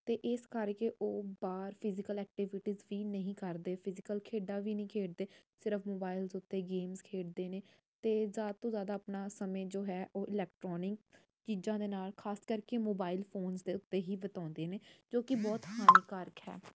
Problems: none marked